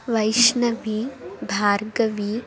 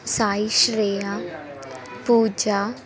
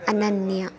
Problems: continuous background conversations